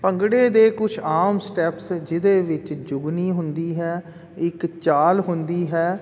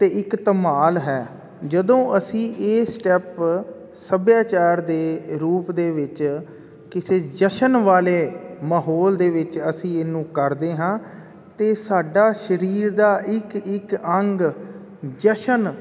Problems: none marked